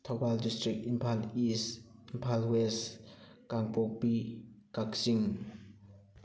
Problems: background conversations at intervals